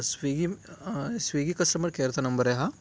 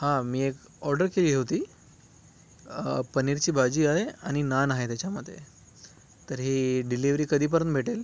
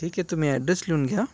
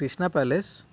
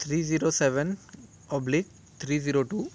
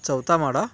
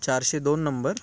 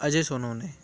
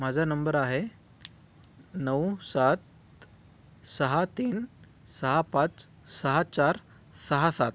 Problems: none marked